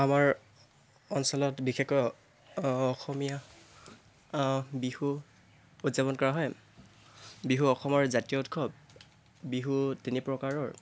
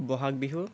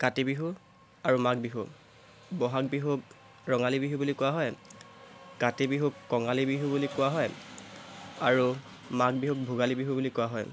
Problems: none marked